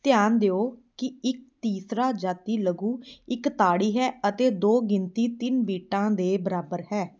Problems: none marked